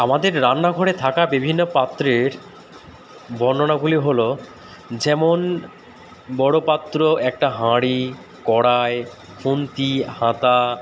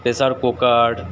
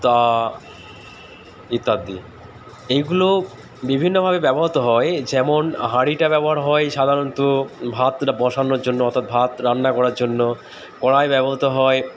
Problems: none marked